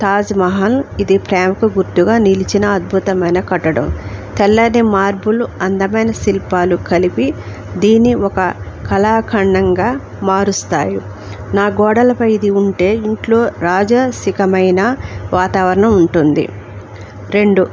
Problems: none marked